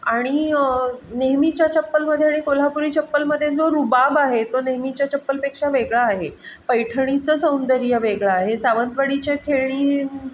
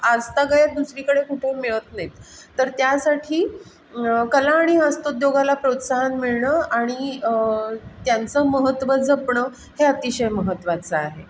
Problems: background sounds at intervals